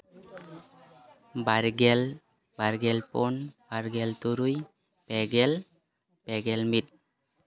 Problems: background conversations at intervals